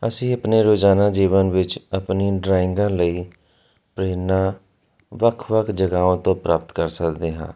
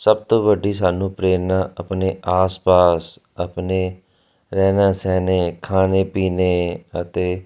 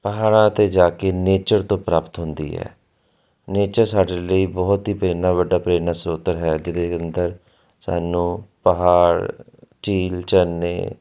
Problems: constant background noise